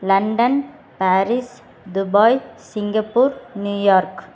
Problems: constant background noise